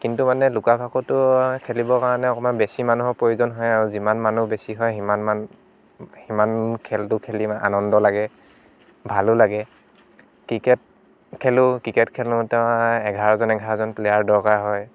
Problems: background sounds at intervals